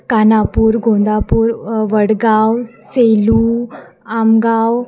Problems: constant background noise